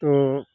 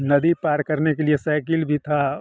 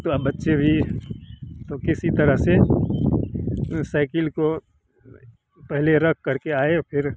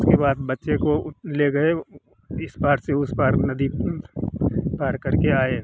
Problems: constant background noise